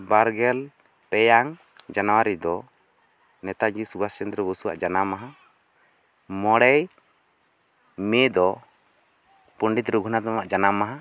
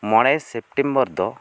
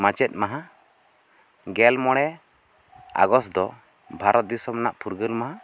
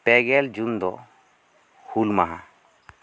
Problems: none marked